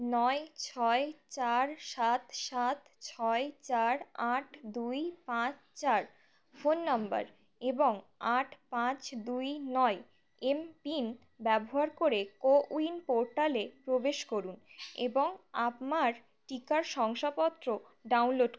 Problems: background sounds at intervals